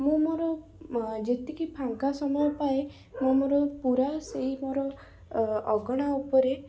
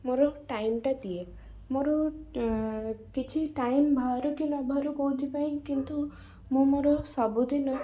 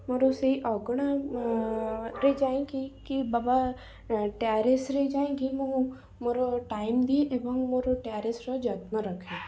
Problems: background sounds at intervals, low volume